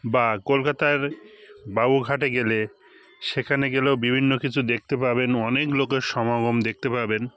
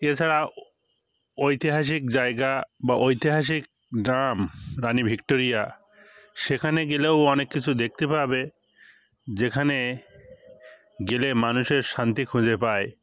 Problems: constant background noise, background conversations at intervals